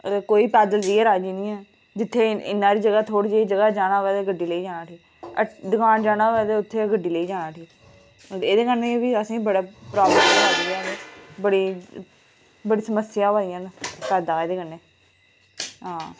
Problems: background sounds at intervals